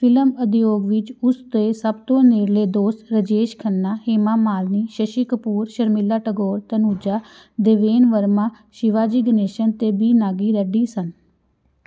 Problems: none marked